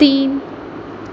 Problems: none marked